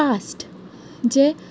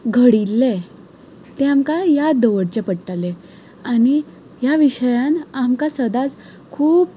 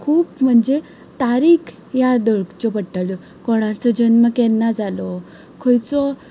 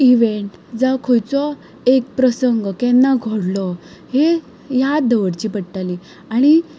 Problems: background sounds at intervals